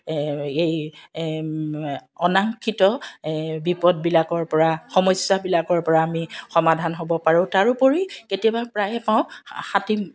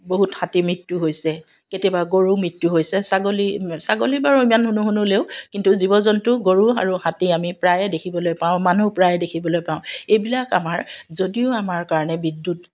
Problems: background sounds at intervals